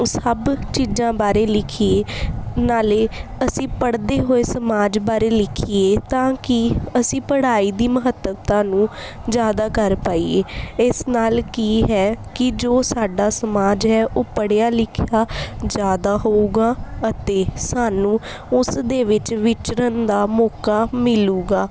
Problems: background sounds at intervals